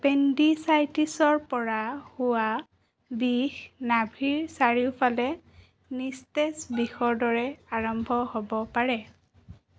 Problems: none marked